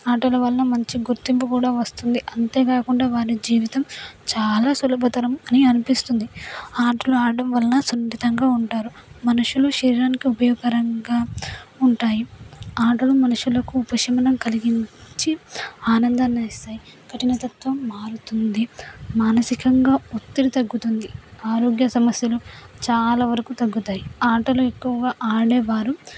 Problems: background sounds at intervals